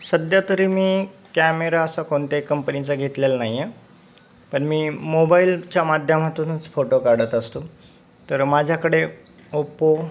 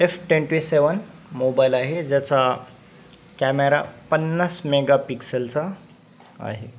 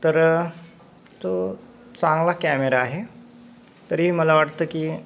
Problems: constant background noise